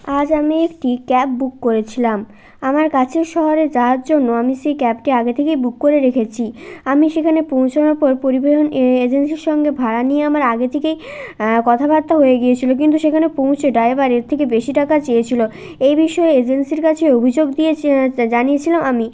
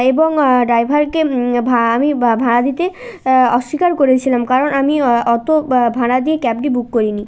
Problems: none marked